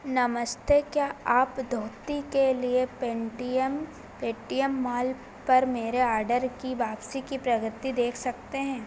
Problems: constant background noise